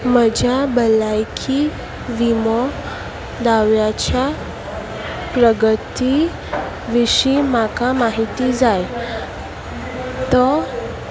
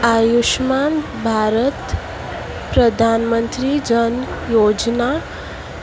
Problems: constant background noise